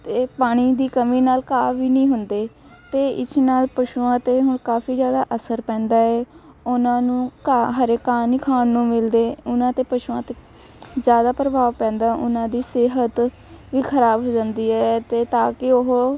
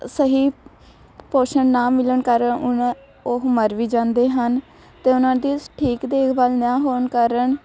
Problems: constant background noise, continuous background conversations